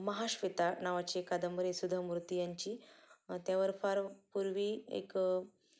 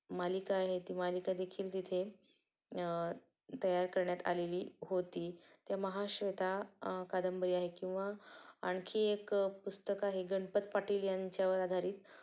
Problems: background sounds at intervals